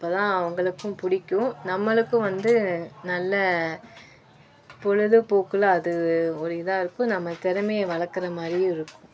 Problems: constant background noise